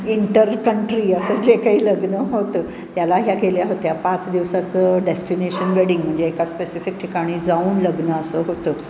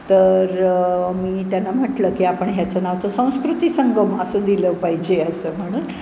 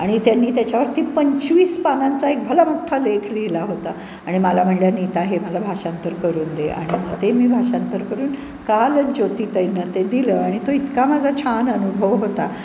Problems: background sounds at intervals